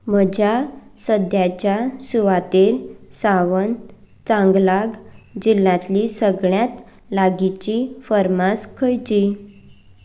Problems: background sounds at intervals